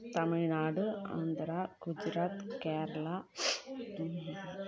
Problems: none marked